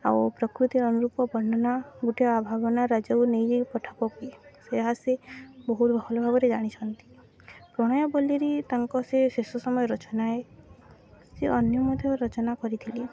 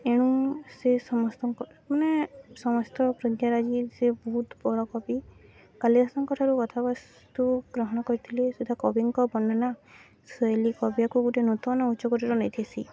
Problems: constant background noise, continuous background conversations